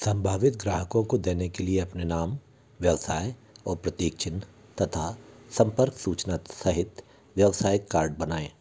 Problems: low volume